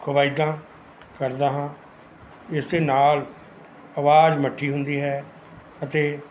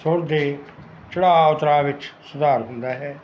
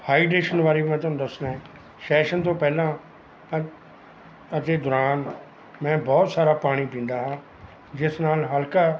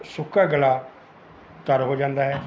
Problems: none marked